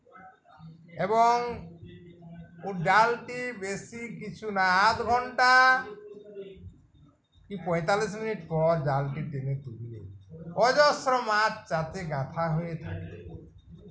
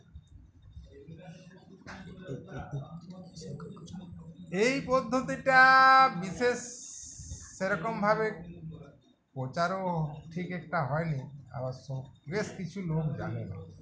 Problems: constant background noise, continuous background conversations